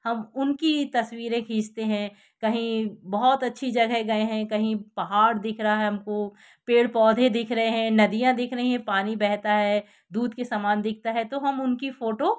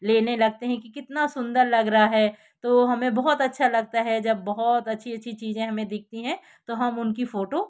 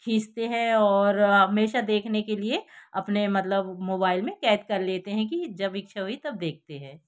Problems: background sounds at intervals